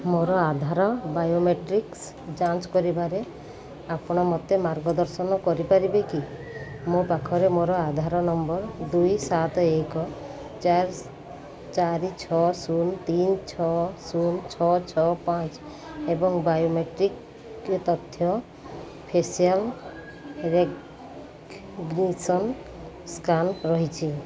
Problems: none marked